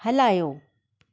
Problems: none marked